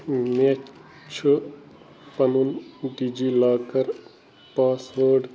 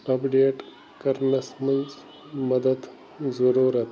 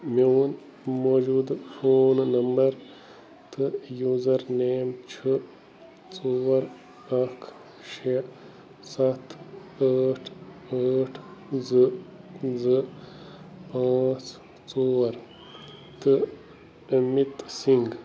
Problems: constant background noise